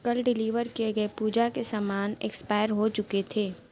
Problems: none marked